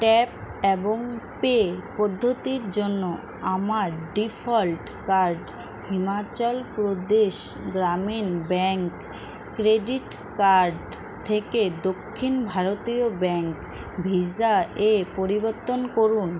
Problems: constant background noise